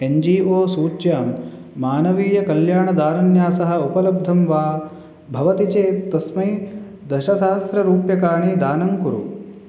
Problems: none marked